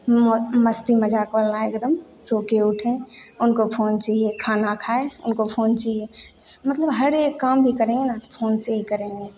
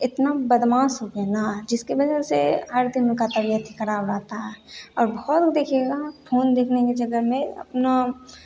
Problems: none marked